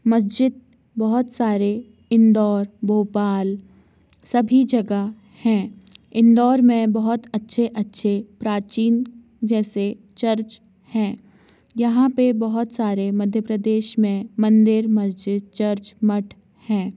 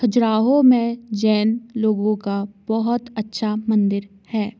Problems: constant background noise